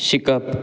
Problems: none marked